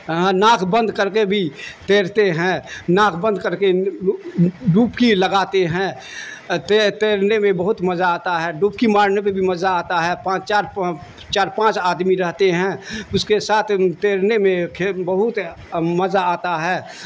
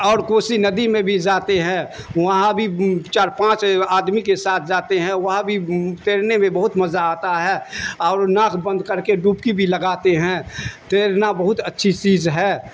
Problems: constant background noise